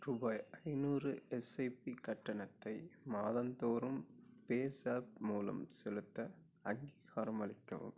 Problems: low volume